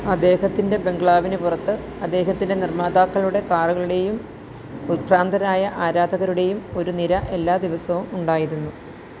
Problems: constant background noise